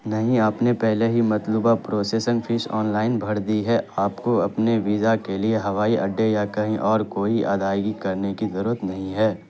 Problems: constant background noise